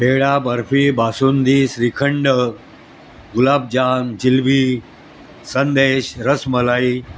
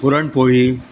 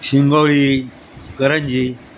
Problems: constant background noise, background conversations at intervals